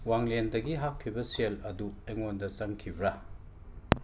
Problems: none marked